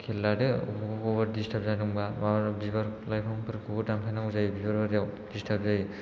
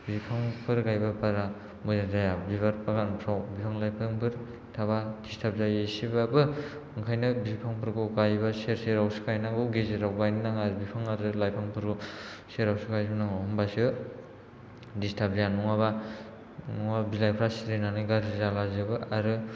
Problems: low volume